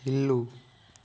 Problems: low volume